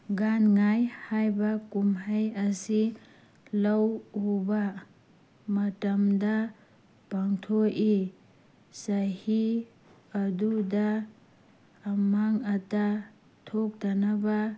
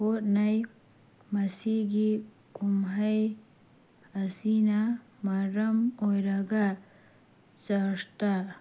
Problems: background sounds at intervals